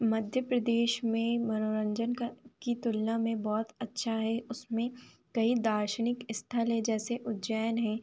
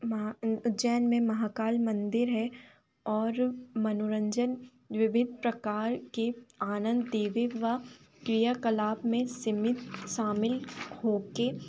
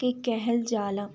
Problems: constant background noise